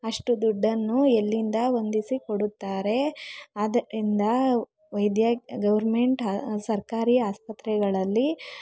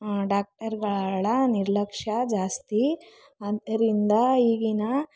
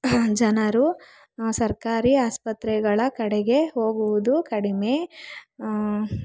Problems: none marked